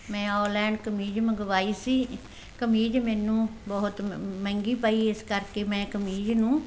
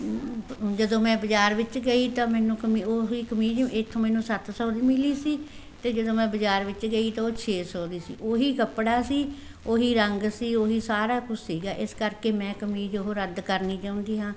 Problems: constant background noise